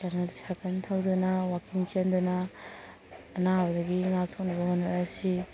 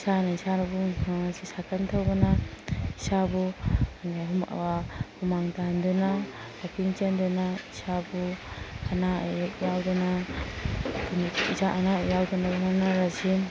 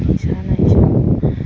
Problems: background sounds at intervals